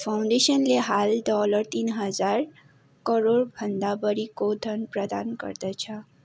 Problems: none marked